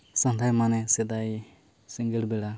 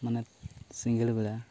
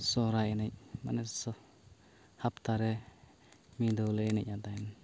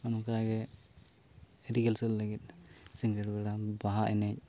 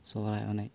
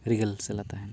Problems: background sounds at intervals